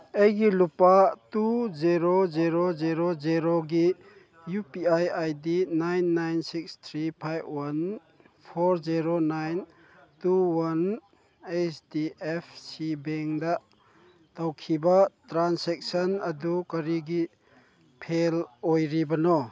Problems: background sounds at intervals